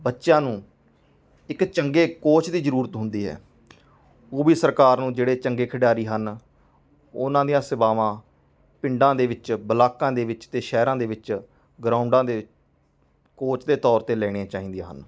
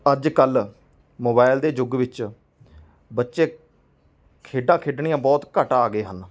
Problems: background sounds at intervals, background conversations at intervals